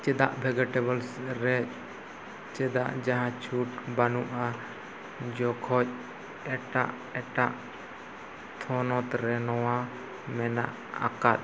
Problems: constant background noise